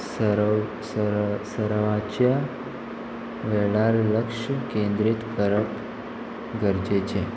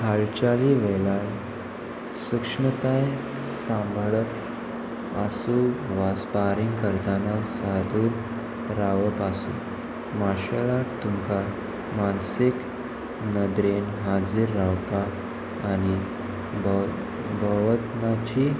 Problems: constant background noise